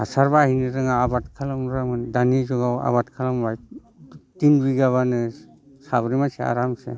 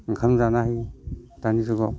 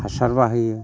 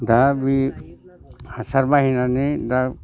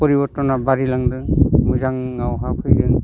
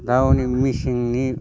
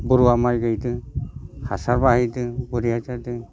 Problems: constant background noise